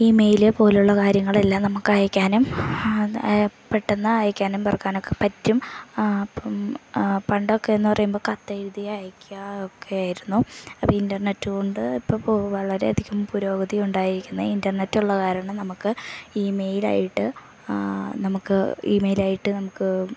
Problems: none marked